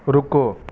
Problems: constant background noise